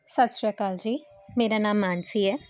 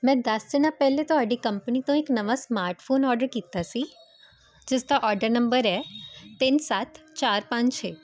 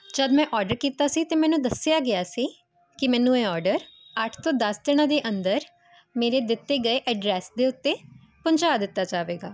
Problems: none marked